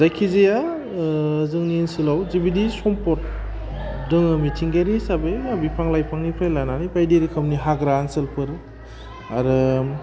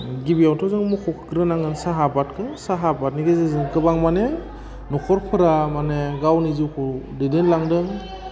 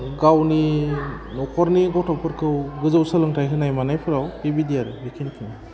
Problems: constant background noise